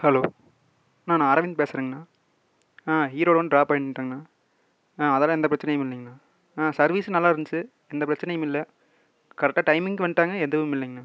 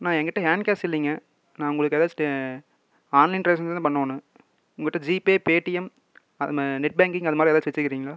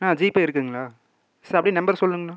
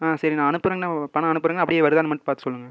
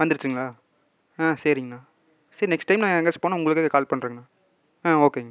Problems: none marked